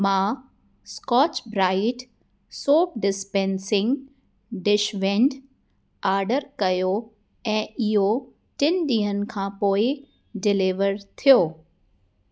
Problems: none marked